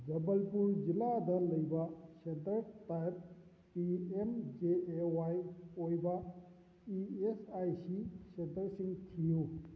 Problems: constant background noise, low volume